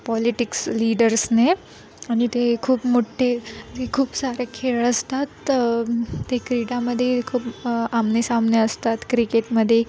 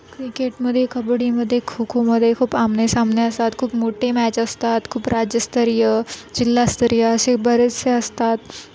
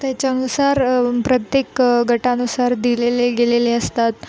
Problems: constant background noise, continuous background conversations